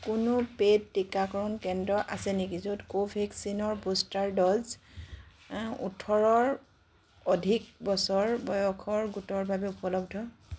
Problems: background sounds at intervals